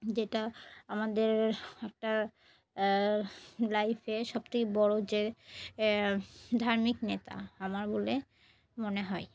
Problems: background sounds at intervals